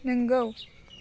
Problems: low volume